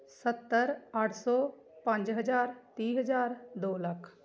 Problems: background conversations at intervals